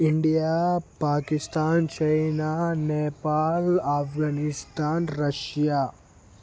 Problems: constant background noise